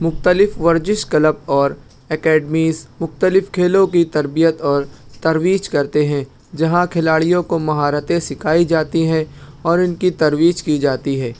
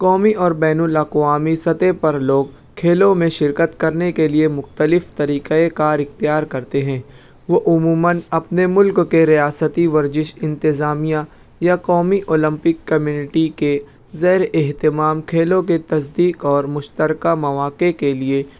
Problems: none marked